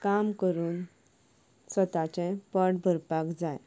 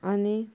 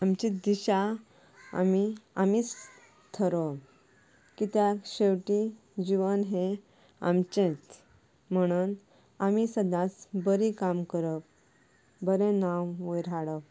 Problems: background sounds at intervals